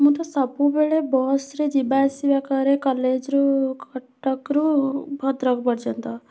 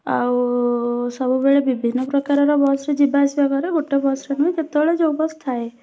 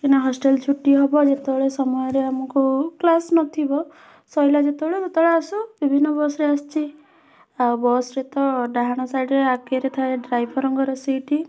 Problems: constant background noise, continuous background conversations